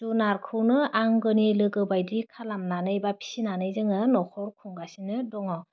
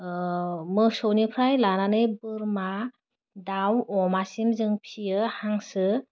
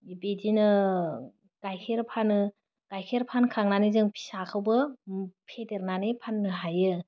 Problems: none marked